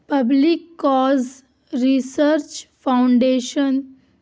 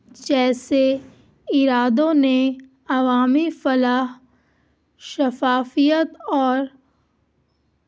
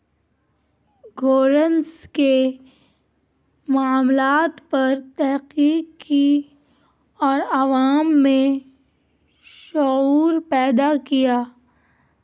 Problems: constant background noise